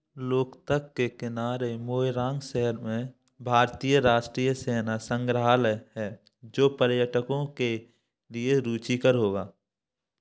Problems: none marked